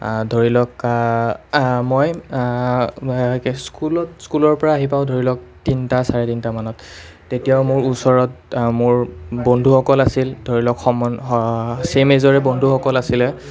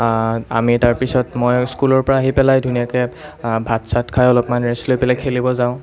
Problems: none marked